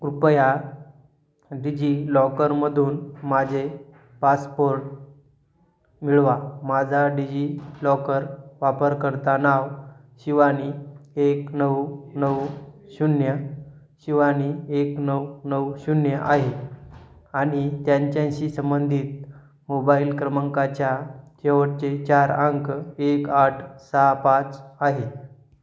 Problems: background sounds at intervals